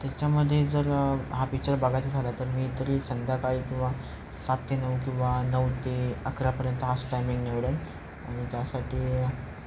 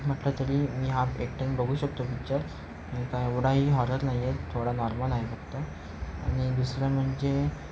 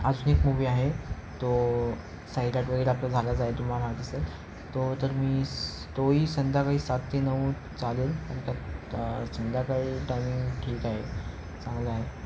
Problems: constant background noise